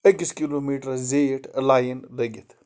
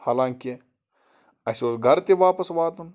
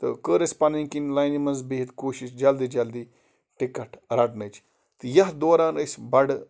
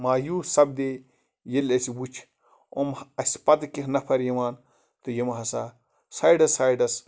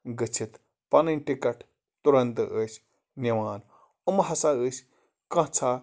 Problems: constant background noise